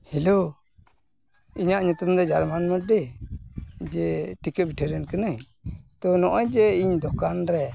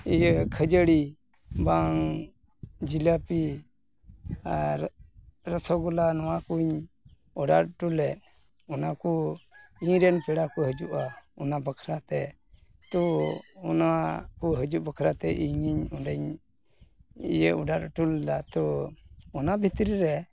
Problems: background sounds at intervals